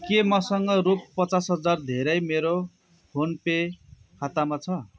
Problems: none marked